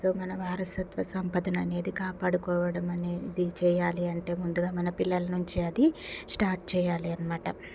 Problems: constant background noise